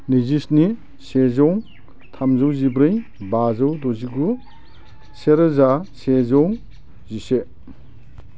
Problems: low volume